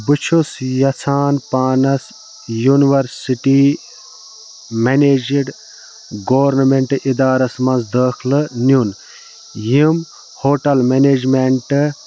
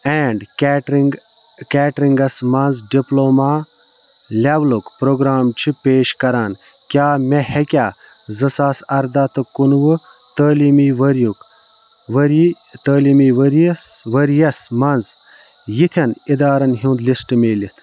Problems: constant background noise, background conversations at intervals